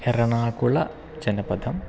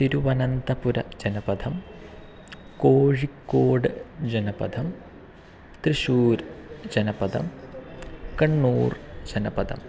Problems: constant background noise